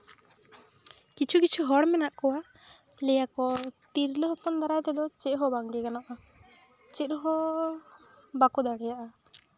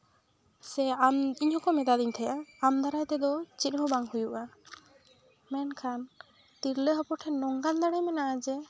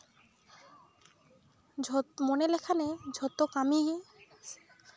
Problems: background sounds at intervals